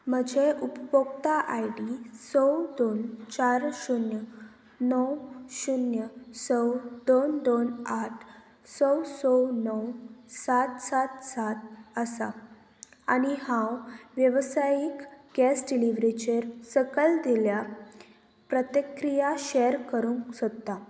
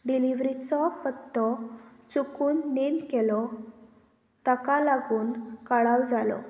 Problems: constant background noise